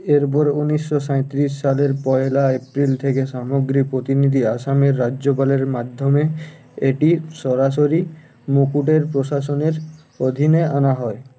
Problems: constant background noise